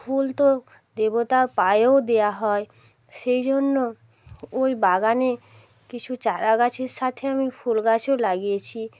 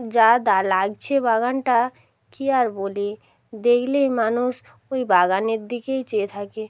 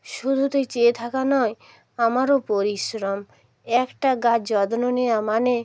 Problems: none marked